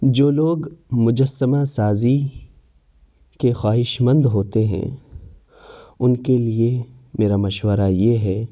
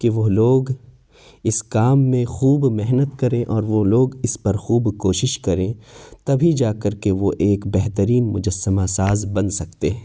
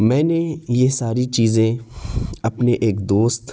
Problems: background sounds at intervals